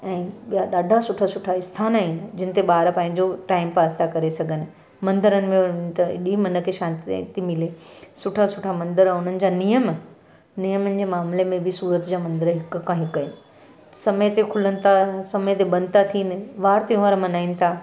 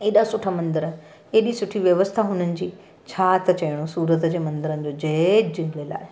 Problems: none marked